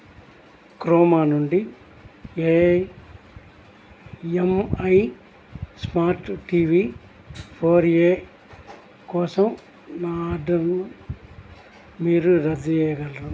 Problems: constant background noise